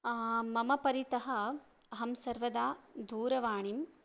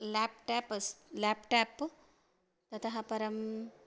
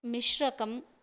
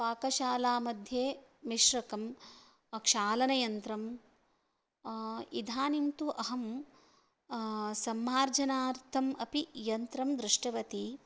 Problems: none marked